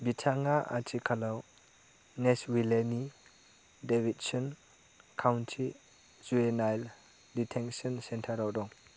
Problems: low volume